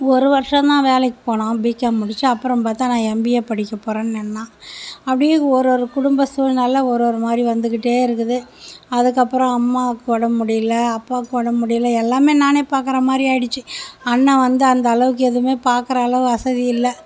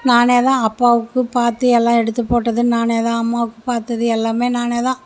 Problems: none marked